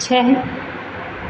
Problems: none marked